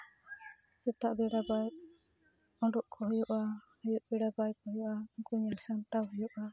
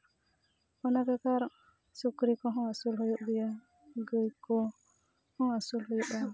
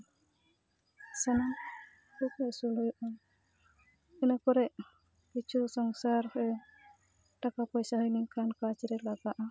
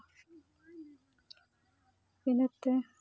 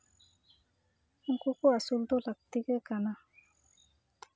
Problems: background sounds at intervals, continuous background conversations